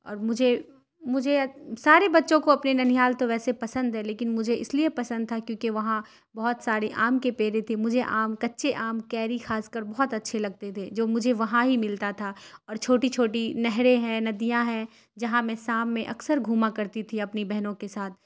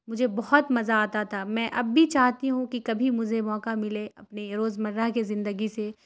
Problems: none marked